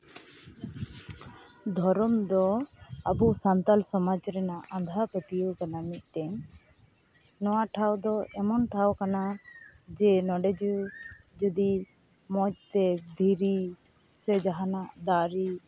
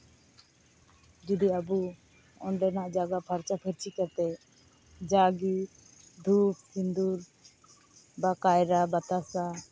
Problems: constant background noise